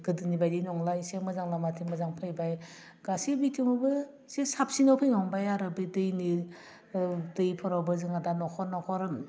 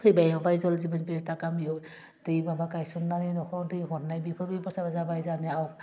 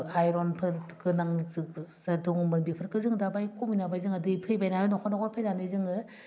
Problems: constant background noise